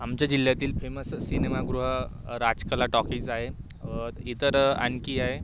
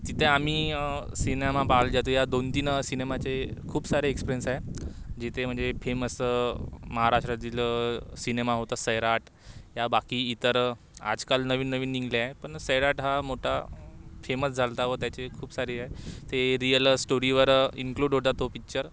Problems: constant background noise